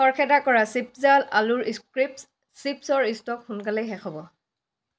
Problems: none marked